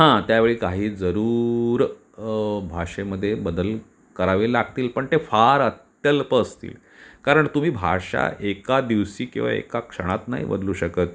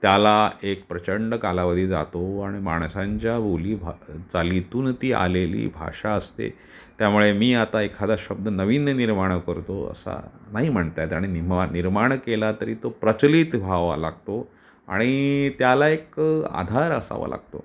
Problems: none marked